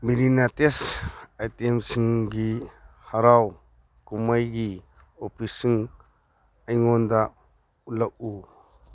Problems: none marked